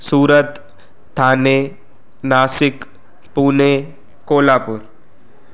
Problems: constant background noise